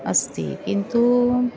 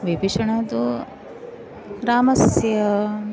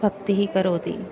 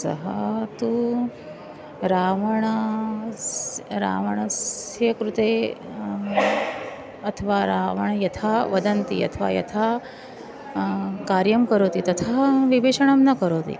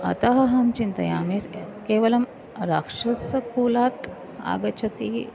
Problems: constant background noise, continuous background conversations